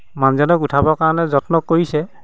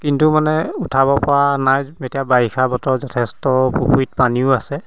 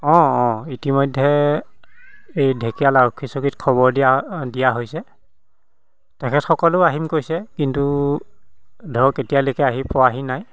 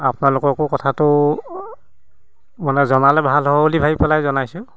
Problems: constant background noise